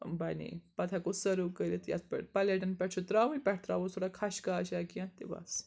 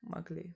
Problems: background sounds at intervals, background conversations at intervals